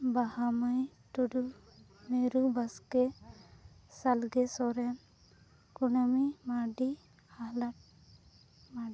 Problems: none marked